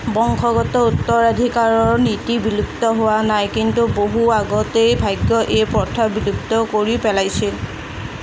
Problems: constant background noise